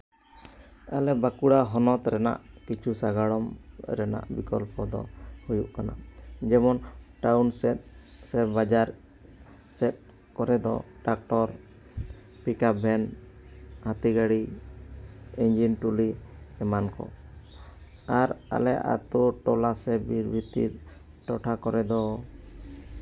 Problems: background sounds at intervals